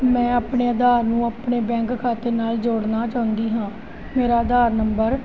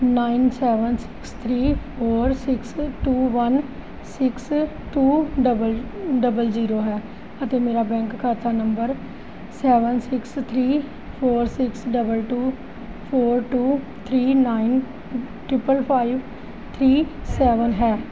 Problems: continuous background conversations